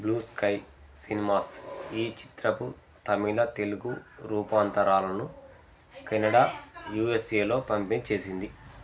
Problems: background conversations at intervals